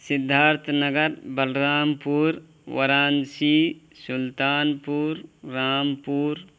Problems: constant background noise